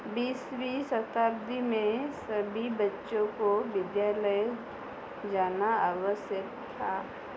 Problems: none marked